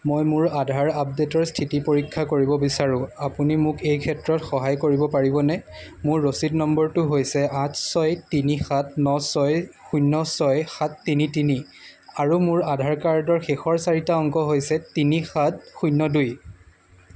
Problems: constant background noise